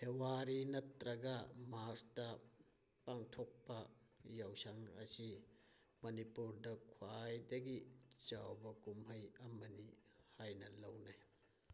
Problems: none marked